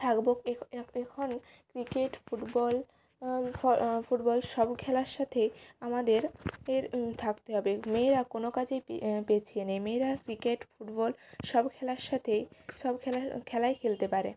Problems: constant background noise